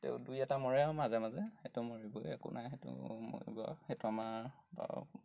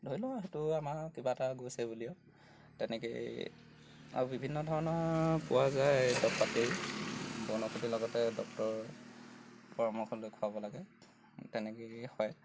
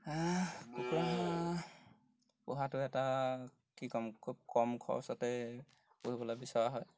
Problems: background sounds at intervals